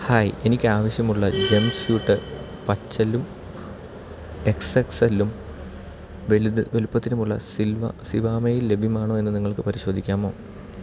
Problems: constant background noise